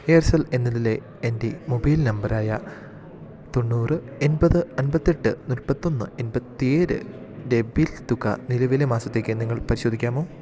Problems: none marked